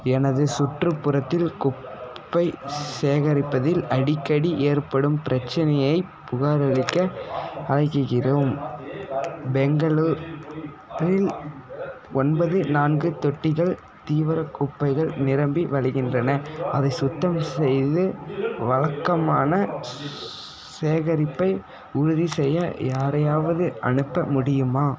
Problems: continuous background conversations